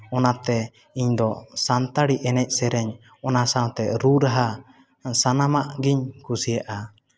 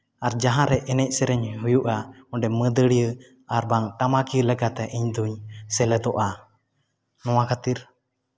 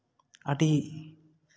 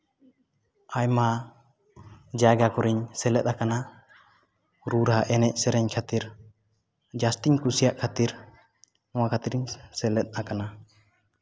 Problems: background sounds at intervals, background conversations at intervals